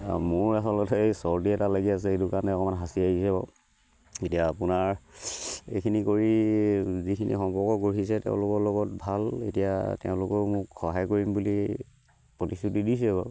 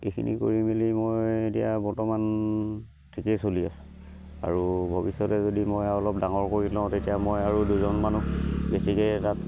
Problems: constant background noise, background conversations at intervals